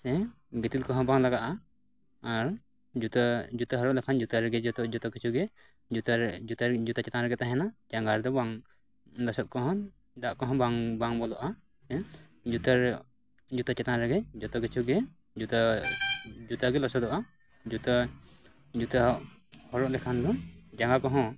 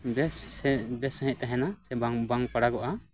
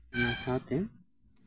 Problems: constant background noise